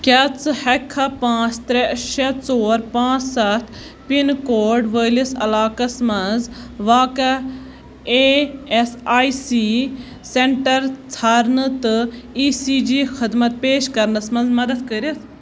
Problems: constant background noise